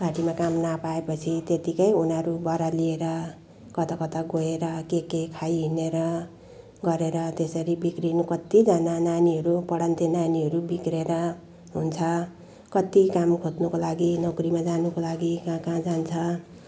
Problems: background sounds at intervals